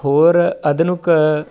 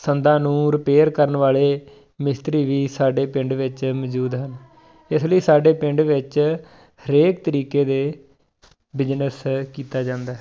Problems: background sounds at intervals